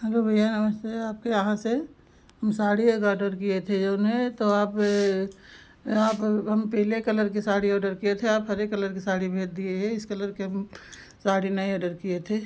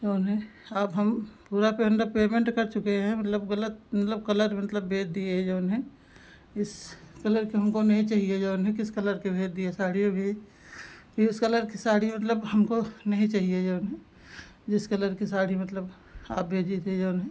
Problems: background sounds at intervals